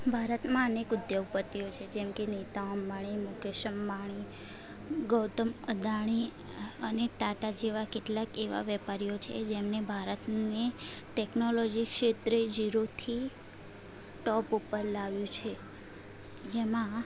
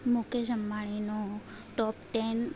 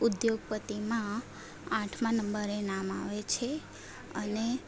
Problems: none marked